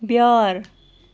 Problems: constant background noise